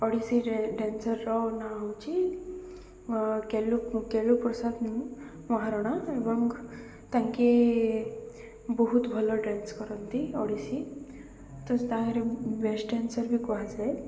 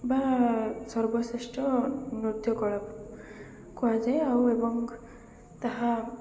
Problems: none marked